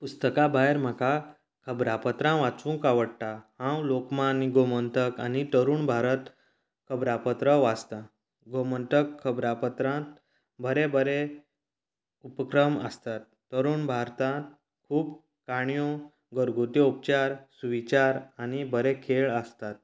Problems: constant background noise